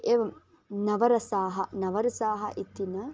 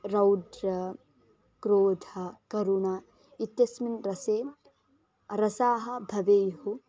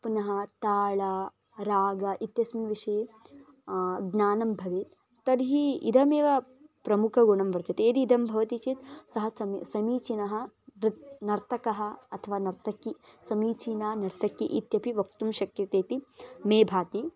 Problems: background sounds at intervals